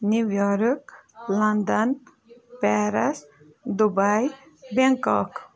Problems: background conversations at intervals